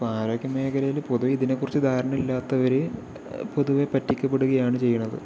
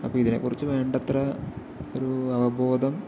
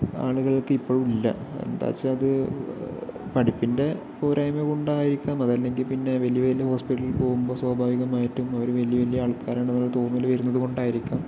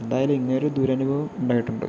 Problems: background sounds at intervals, low volume